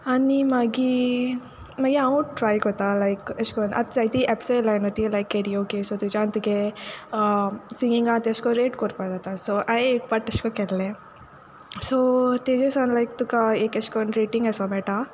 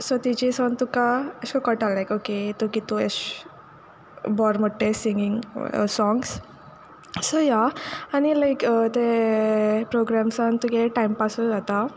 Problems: background sounds at intervals